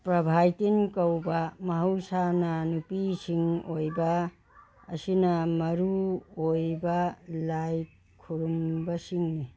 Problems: background sounds at intervals, background conversations at intervals